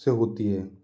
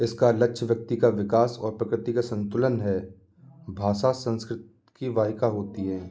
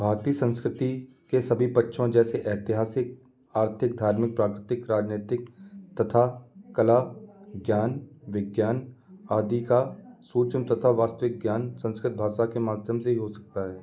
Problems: constant background noise